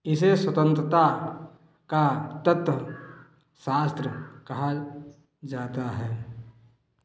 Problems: echo